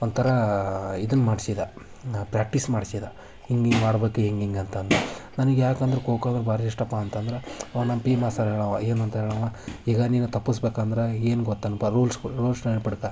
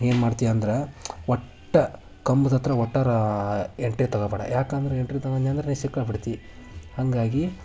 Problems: none marked